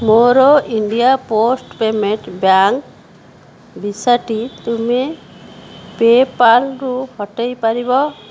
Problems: background sounds at intervals